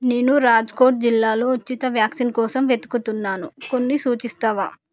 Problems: none marked